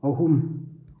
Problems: none marked